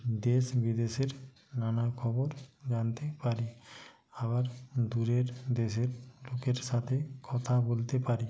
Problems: background sounds at intervals, low volume